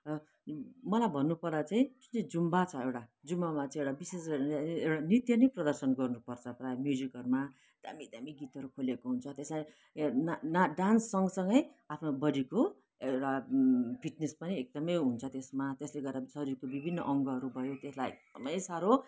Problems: background sounds at intervals